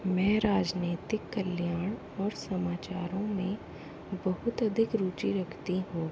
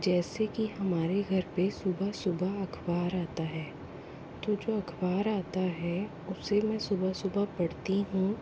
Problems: constant background noise, low volume